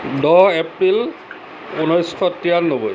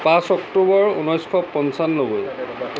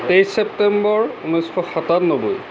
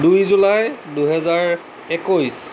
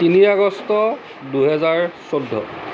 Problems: constant background noise